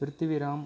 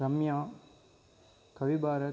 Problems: constant background noise